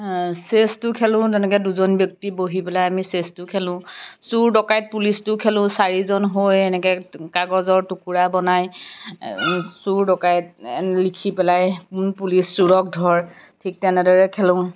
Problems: background sounds at intervals